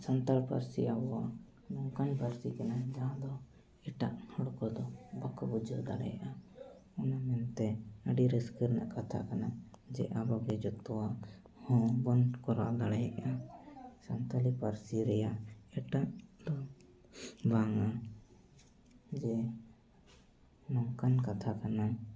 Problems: background conversations at intervals